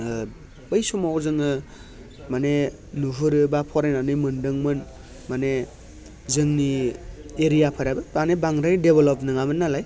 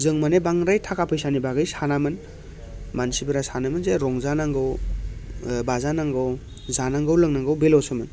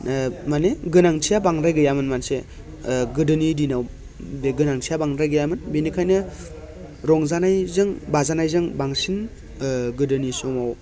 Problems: none marked